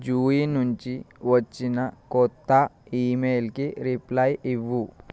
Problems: constant background noise